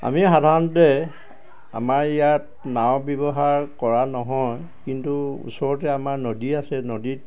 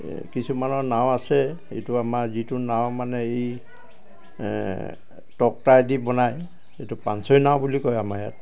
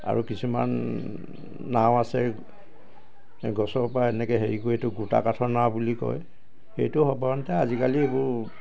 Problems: none marked